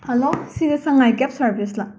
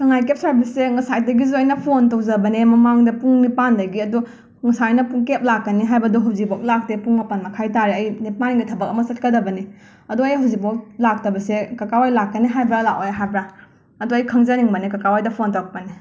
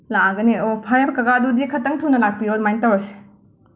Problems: background sounds at intervals